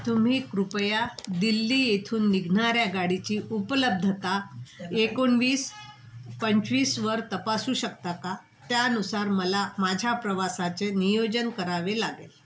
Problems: constant background noise